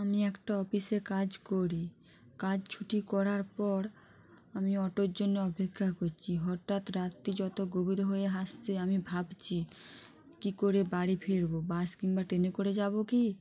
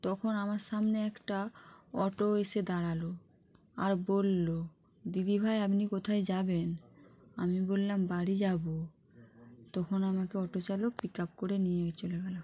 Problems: none marked